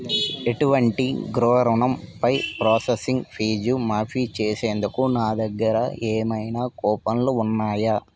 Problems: background sounds at intervals